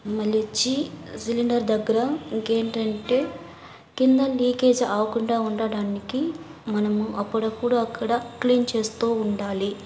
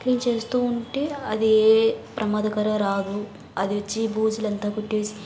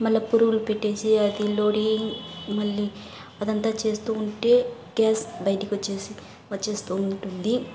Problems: constant background noise, background conversations at intervals